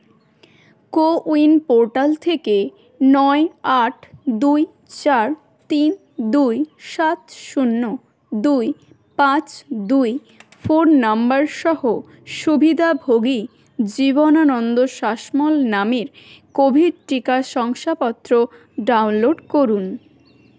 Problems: continuous background conversations